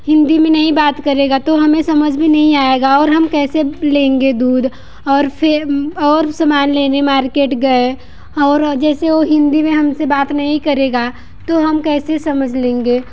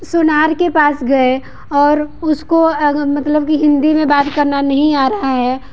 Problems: background sounds at intervals